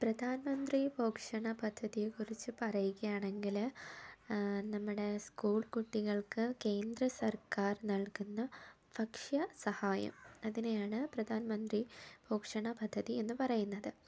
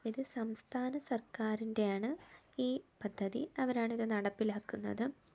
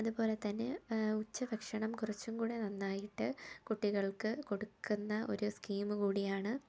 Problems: low volume